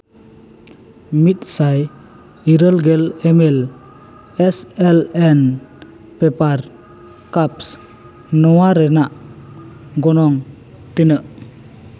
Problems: constant background noise, continuous background conversations